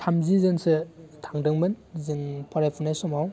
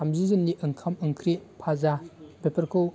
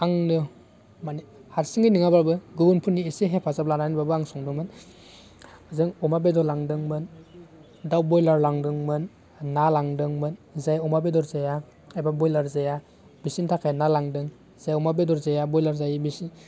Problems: constant background noise